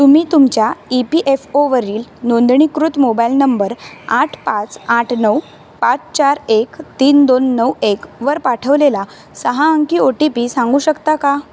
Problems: none marked